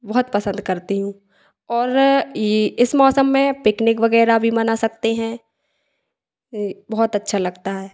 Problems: echo